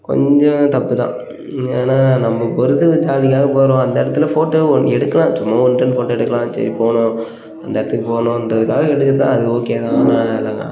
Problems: none marked